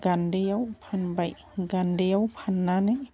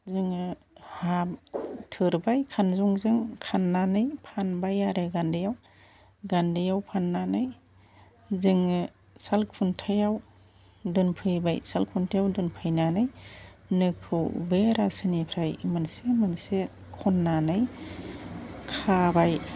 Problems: constant background noise